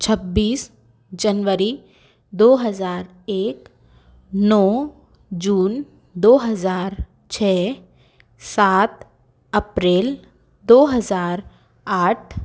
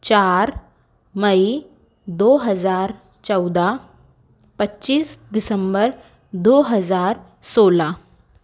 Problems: background sounds at intervals